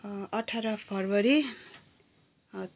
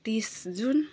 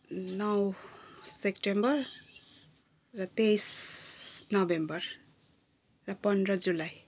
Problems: none marked